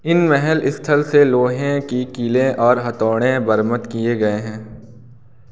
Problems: constant background noise